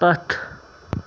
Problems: none marked